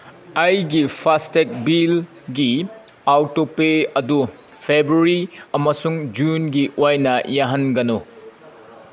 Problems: background sounds at intervals